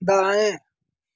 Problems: constant background noise